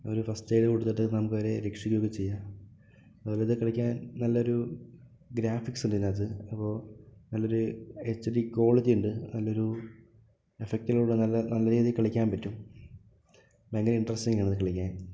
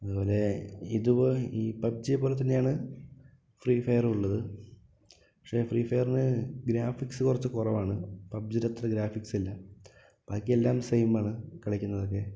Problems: low volume